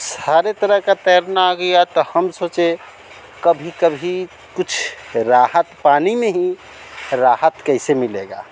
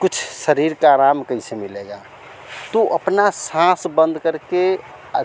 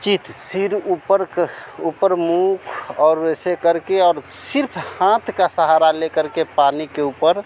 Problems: none marked